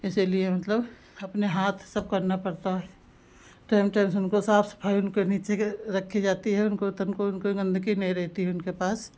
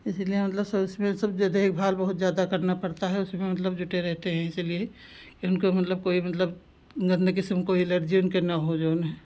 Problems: constant background noise